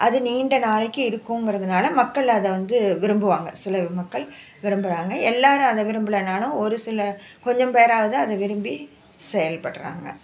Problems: none marked